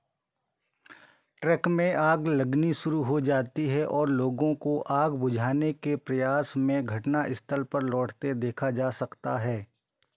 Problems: none marked